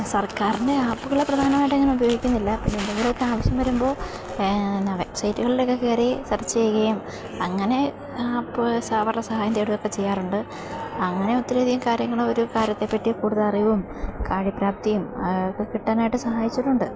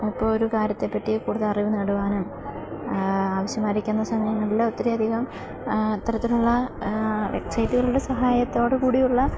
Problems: constant background noise